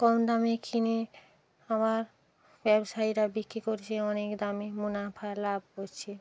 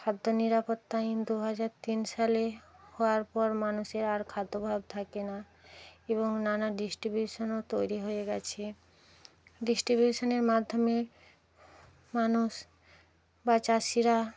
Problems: none marked